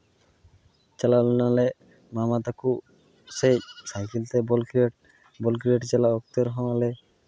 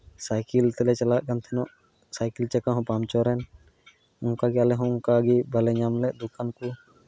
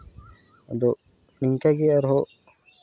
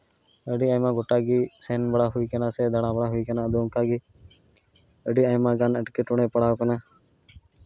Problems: none marked